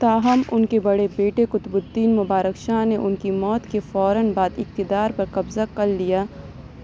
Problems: background sounds at intervals